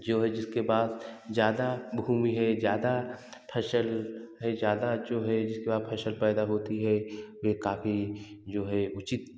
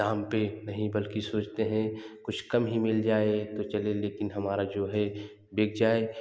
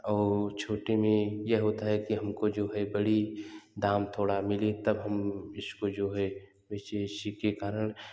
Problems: none marked